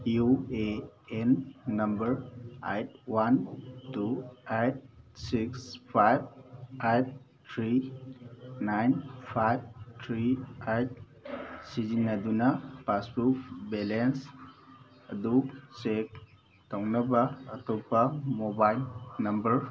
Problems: background sounds at intervals